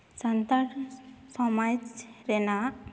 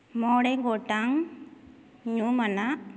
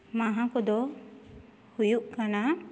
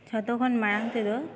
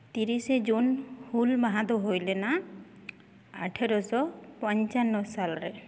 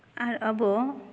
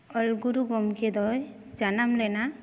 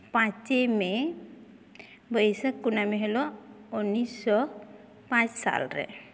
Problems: none marked